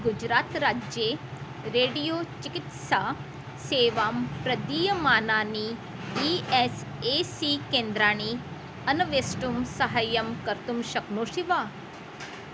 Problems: constant background noise